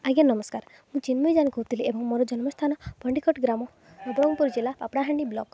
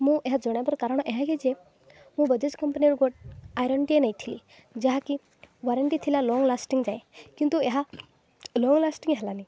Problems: background sounds at intervals